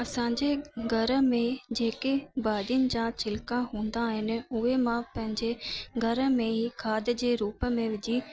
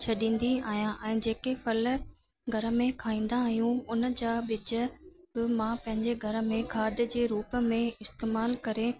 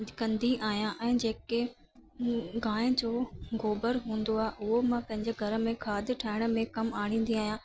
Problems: constant background noise